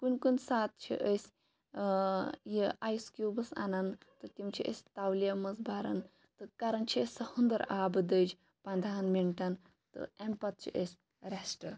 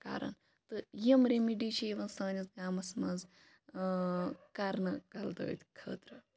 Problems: background sounds at intervals